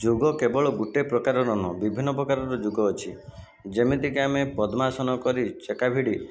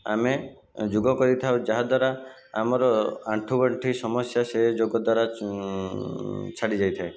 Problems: constant background noise, continuous background conversations